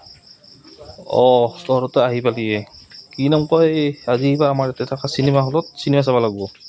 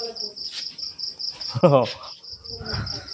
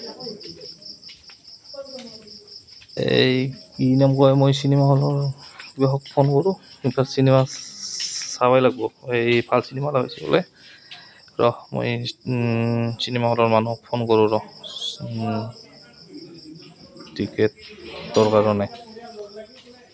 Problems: none marked